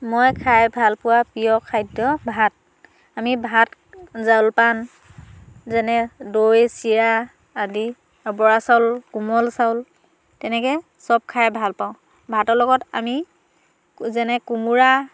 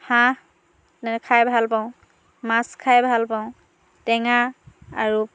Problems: low volume